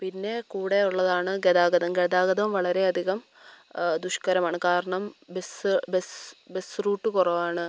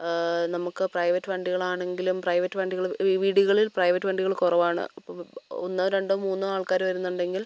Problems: background sounds at intervals